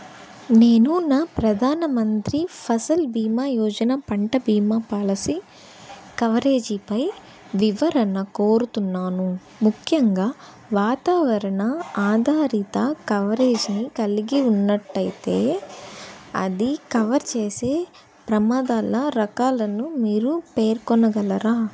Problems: constant background noise